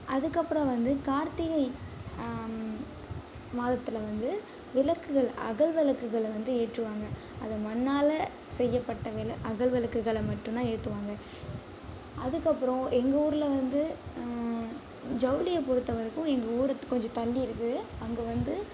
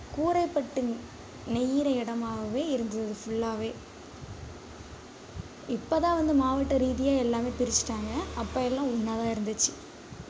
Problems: background sounds at intervals, low volume